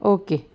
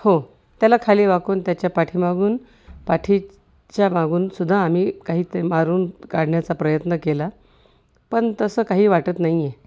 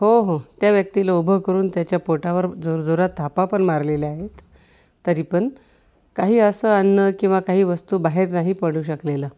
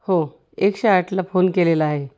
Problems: none marked